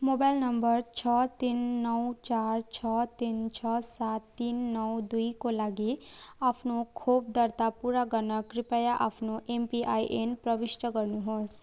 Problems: constant background noise